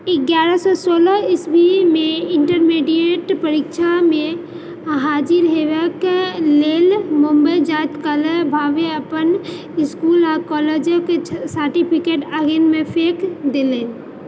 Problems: background sounds at intervals